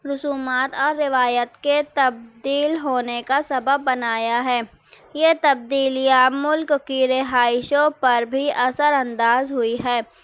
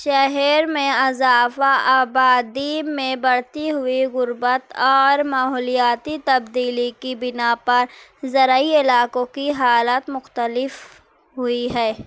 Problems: constant background noise